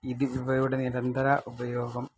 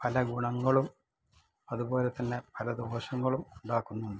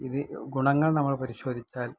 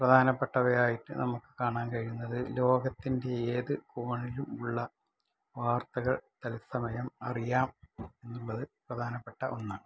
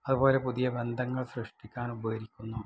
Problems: low volume